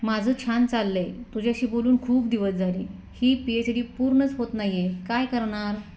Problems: background sounds at intervals